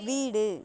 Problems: continuous background conversations